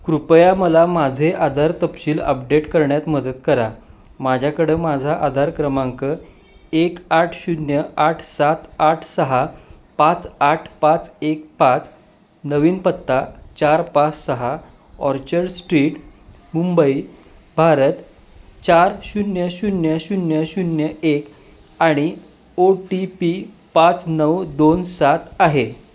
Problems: constant background noise